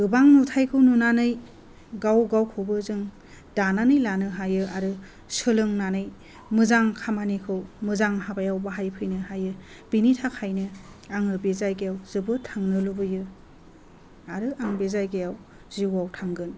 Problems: none marked